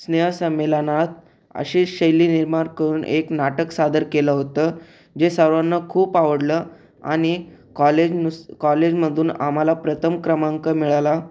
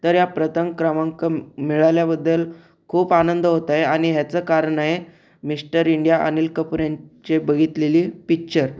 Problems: none marked